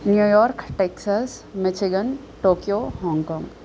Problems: constant background noise